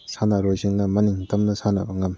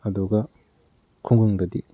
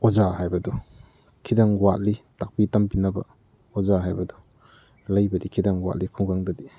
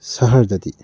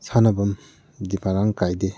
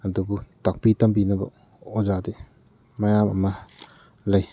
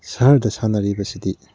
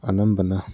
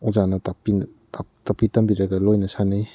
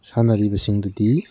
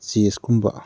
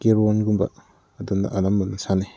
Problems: background sounds at intervals